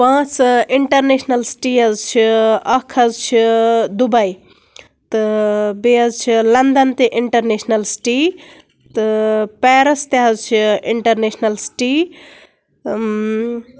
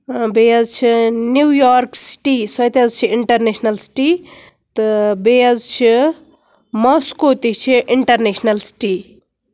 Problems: none marked